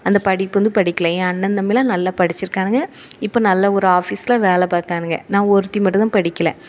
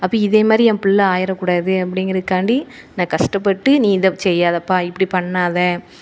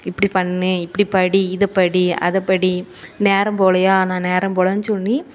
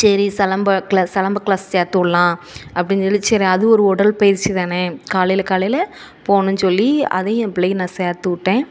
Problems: none marked